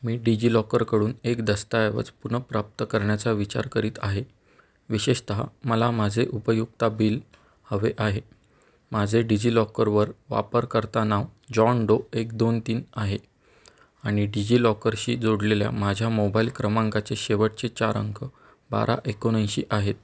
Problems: background sounds at intervals